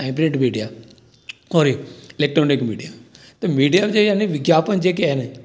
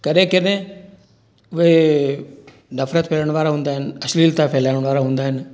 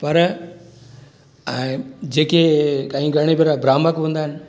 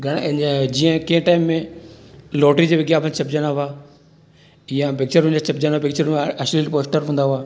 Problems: constant background noise, echo